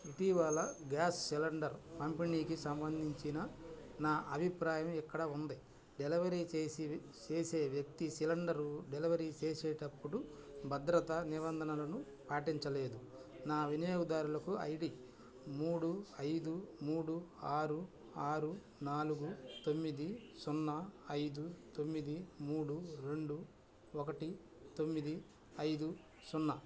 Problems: constant background noise